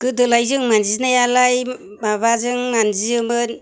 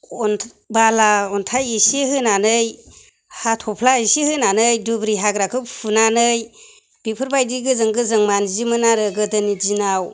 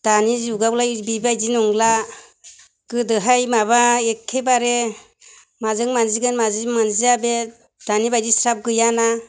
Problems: none marked